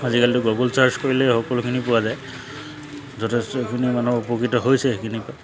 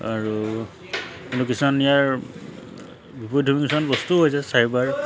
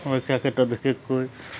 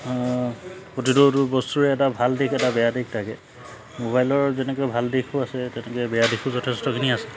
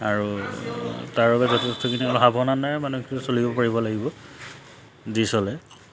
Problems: none marked